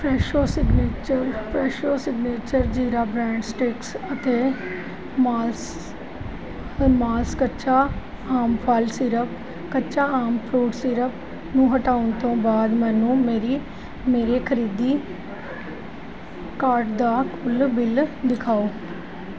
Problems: constant background noise